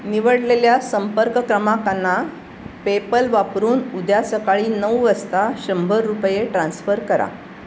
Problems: constant background noise